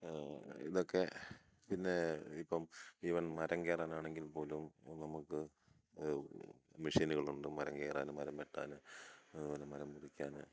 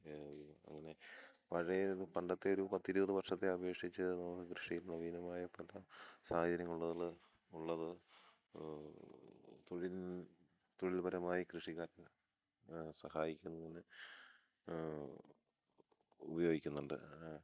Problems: none marked